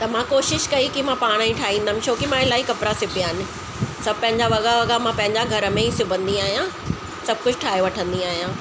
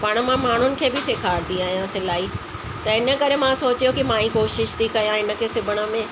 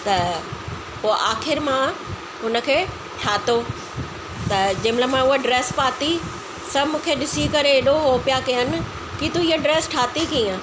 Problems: constant background noise, echo